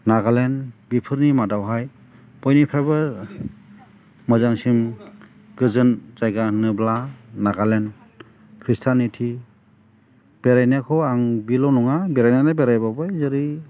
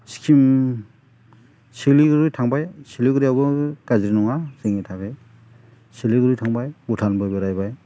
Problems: none marked